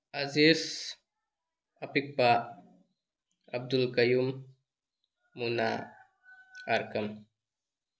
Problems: background sounds at intervals